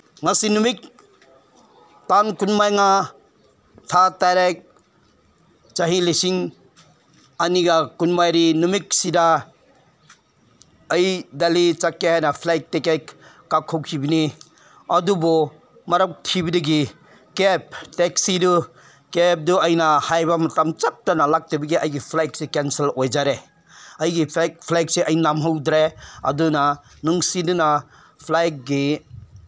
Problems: none marked